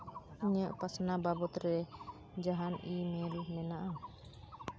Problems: constant background noise